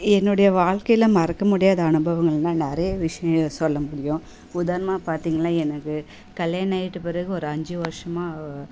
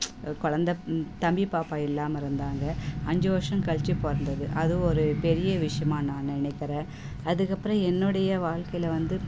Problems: background sounds at intervals, background conversations at intervals